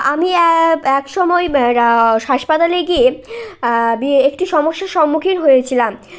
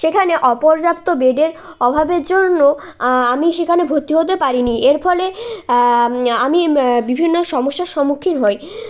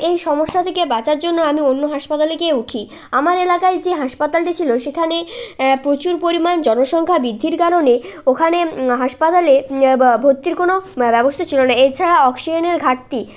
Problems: constant background noise, background conversations at intervals